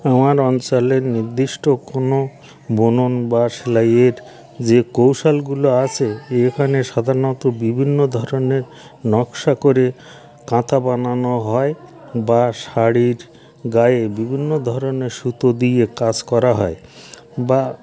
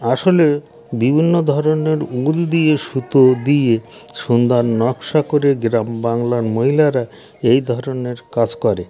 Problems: constant background noise, background conversations at intervals